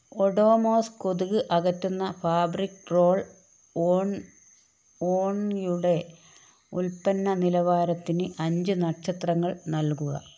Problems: low volume